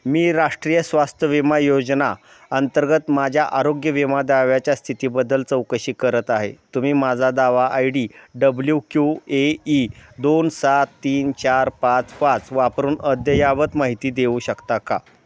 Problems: constant background noise